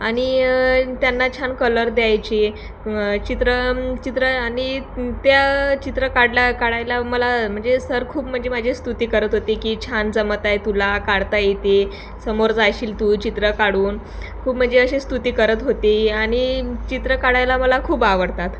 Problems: background sounds at intervals, background conversations at intervals